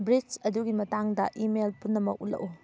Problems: background sounds at intervals